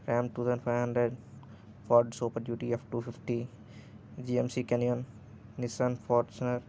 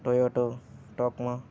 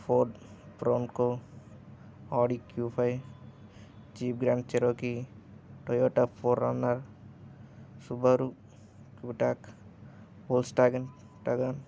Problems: none marked